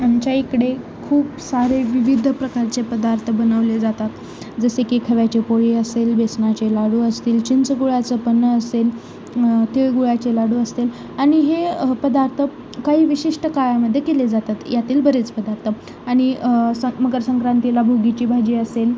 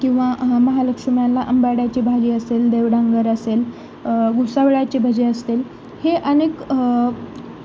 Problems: constant background noise